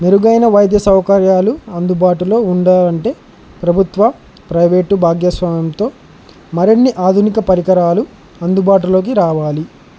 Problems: constant background noise